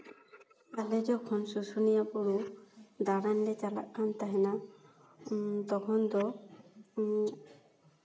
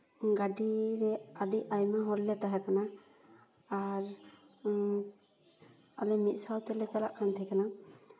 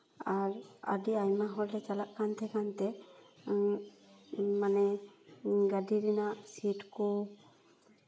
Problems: echo